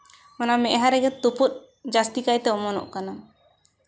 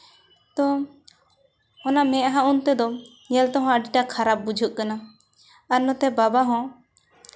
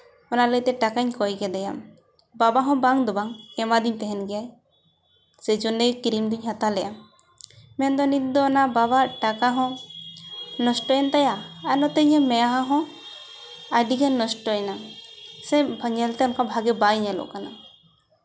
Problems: none marked